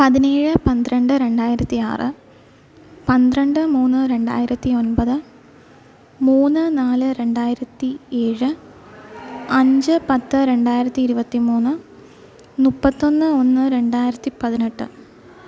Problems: background sounds at intervals